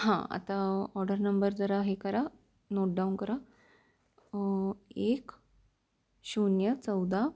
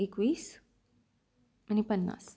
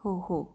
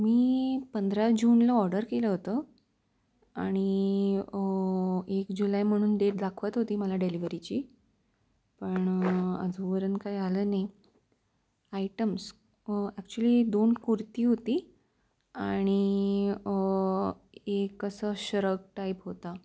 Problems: background sounds at intervals